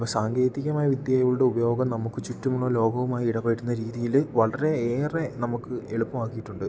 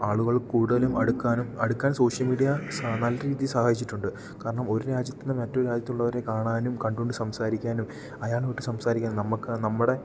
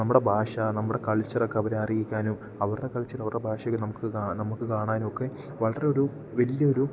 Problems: none marked